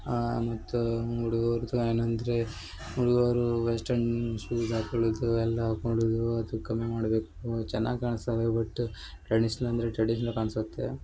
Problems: background sounds at intervals